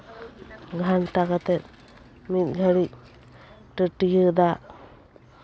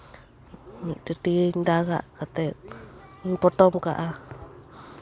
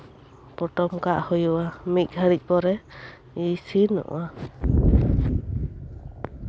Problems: constant background noise, background conversations at intervals